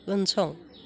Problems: none marked